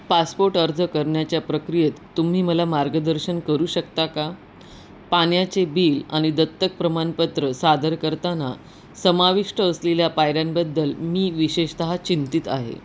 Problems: constant background noise